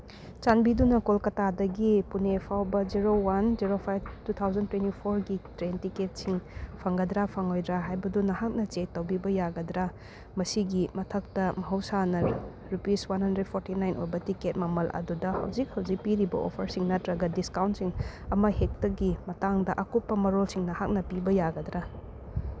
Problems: constant background noise